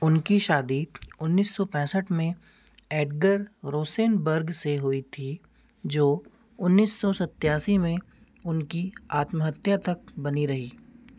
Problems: none marked